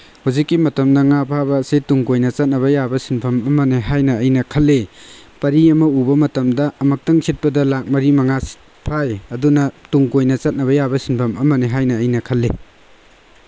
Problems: constant background noise